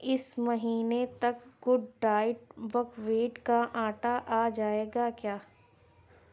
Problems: constant background noise